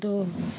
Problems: constant background noise